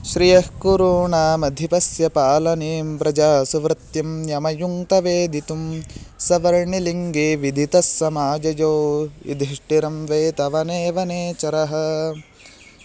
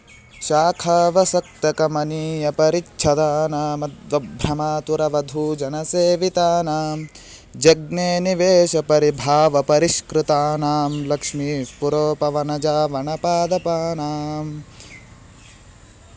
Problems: constant background noise